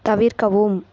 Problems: none marked